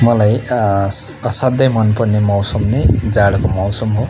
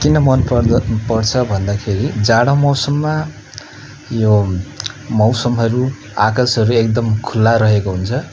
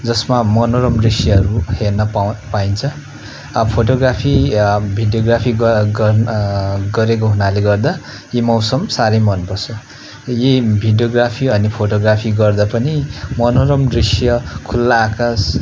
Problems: constant background noise